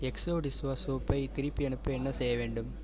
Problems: constant background noise